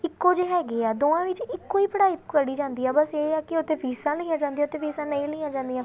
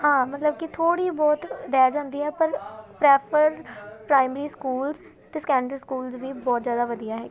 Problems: background sounds at intervals, continuous background conversations